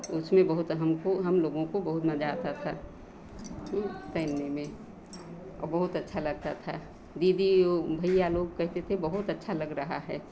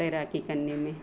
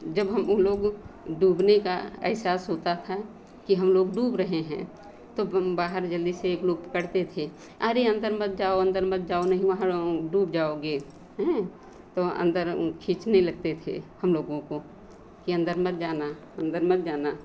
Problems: none marked